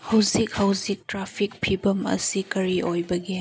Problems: none marked